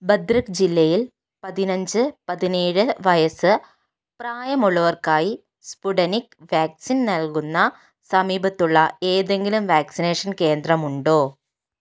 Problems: none marked